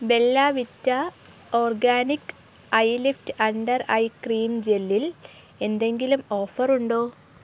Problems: none marked